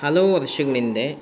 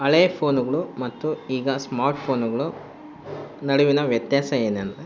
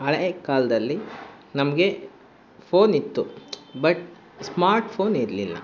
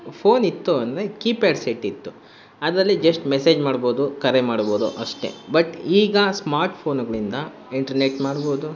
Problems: constant background noise